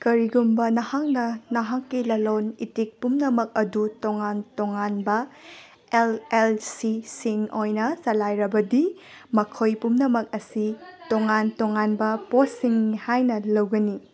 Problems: background sounds at intervals, background conversations at intervals